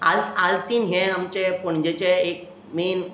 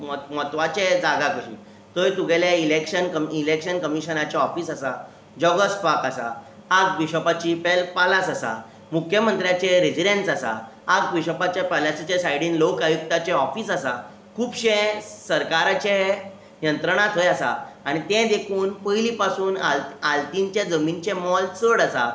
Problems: constant background noise